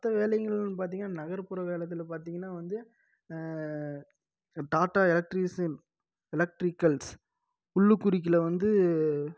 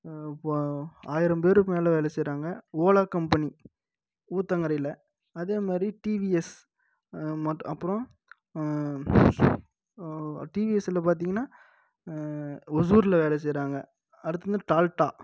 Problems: low volume